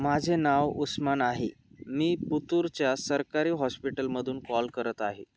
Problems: none marked